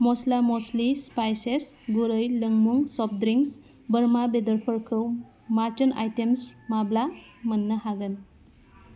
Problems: constant background noise